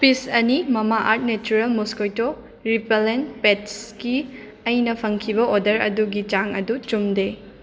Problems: constant background noise, continuous background conversations